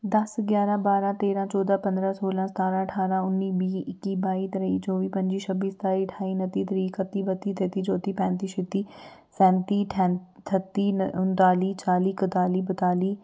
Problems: none marked